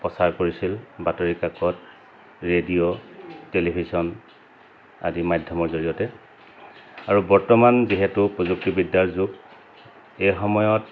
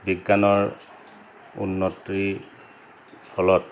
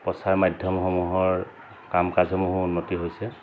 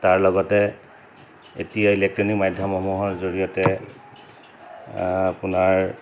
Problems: constant background noise